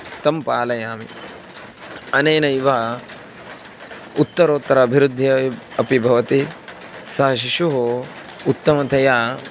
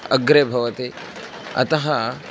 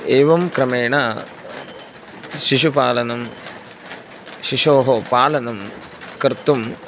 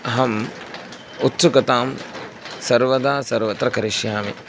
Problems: constant background noise